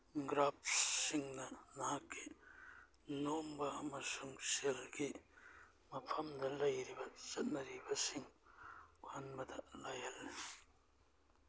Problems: background sounds at intervals